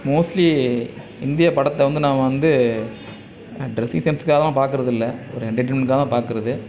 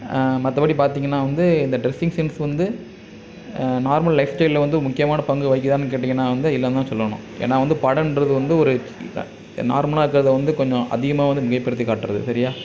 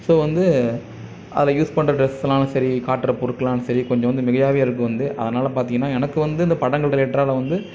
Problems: constant background noise, background conversations at intervals